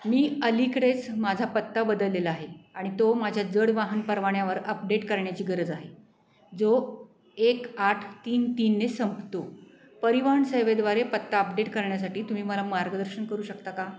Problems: background sounds at intervals